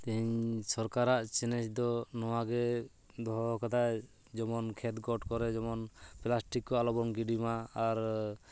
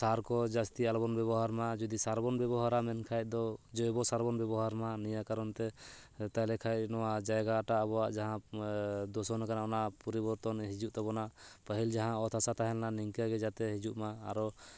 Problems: none marked